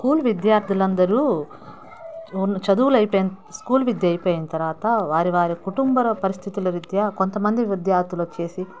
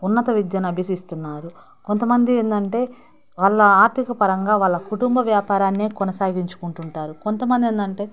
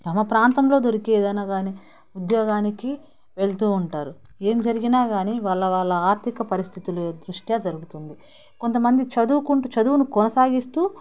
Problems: background conversations at intervals